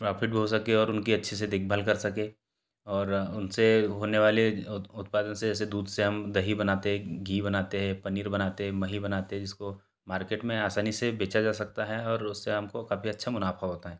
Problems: background sounds at intervals